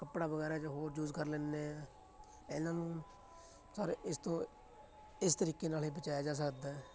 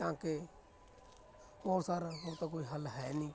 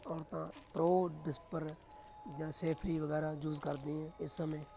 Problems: constant background noise